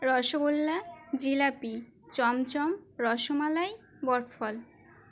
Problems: constant background noise, background conversations at intervals